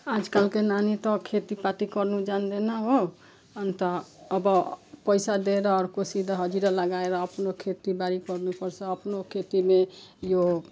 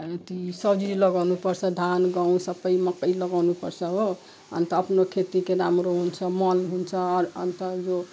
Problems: background sounds at intervals